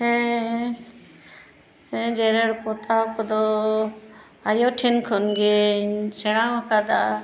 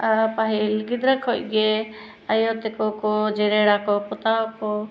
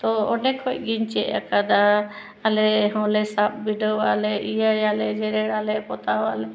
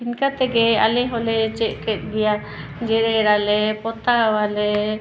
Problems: none marked